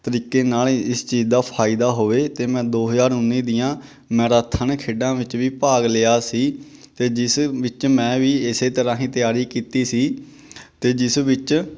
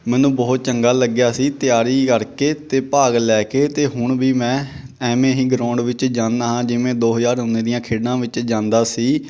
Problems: none marked